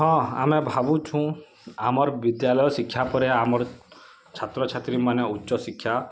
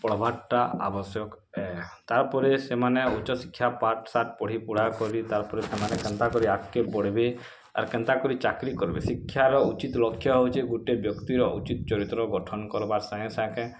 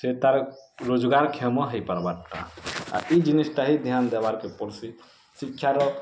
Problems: constant background noise